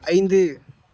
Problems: background conversations at intervals